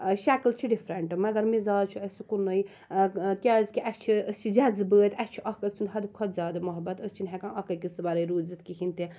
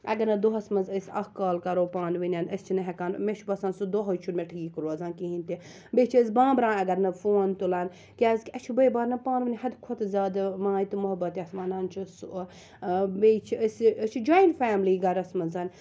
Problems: none marked